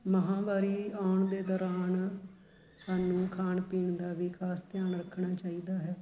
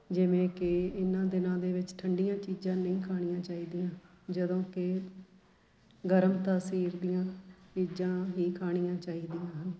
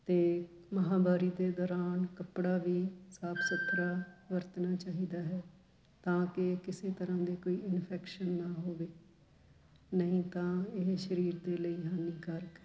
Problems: constant background noise